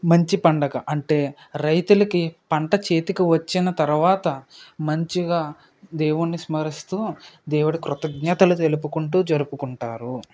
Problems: none marked